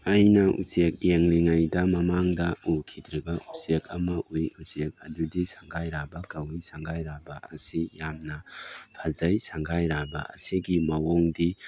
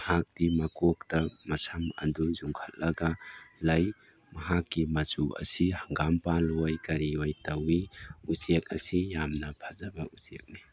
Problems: background sounds at intervals